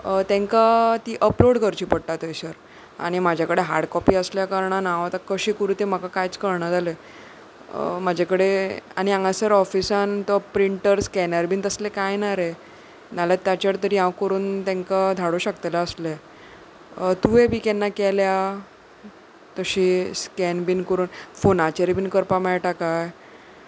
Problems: background sounds at intervals